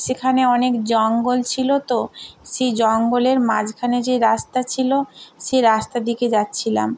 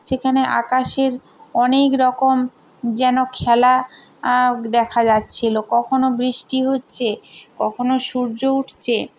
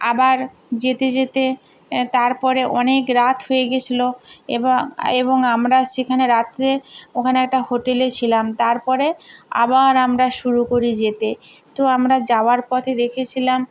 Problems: none marked